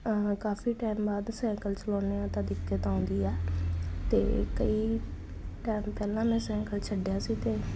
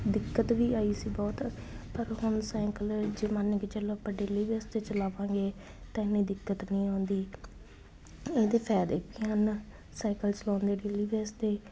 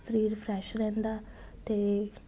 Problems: none marked